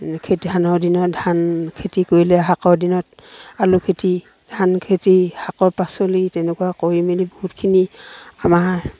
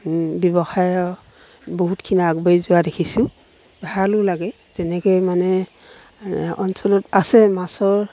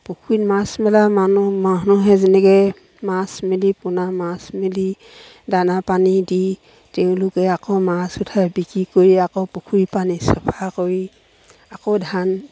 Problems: background sounds at intervals